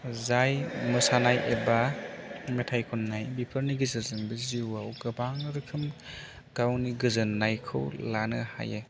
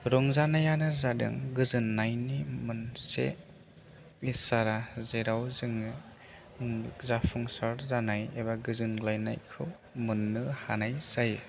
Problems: none marked